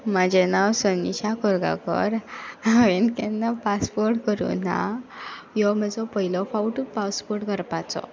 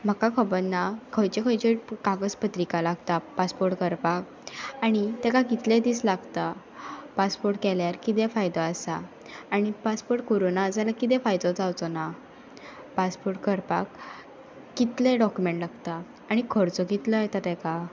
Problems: background sounds at intervals